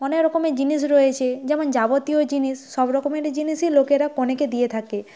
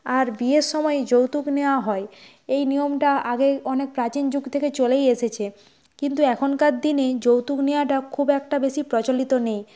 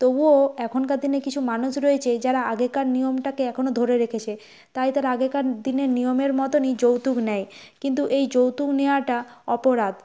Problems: none marked